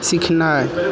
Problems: background conversations at intervals